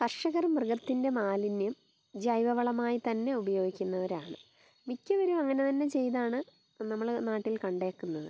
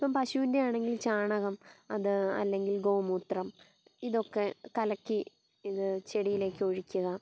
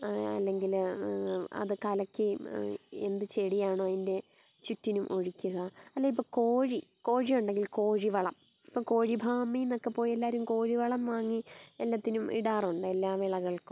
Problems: background sounds at intervals, low volume